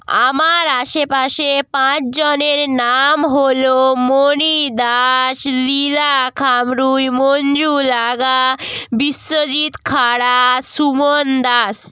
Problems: none marked